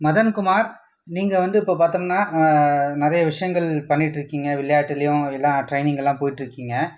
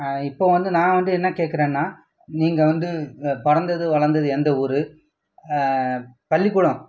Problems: background sounds at intervals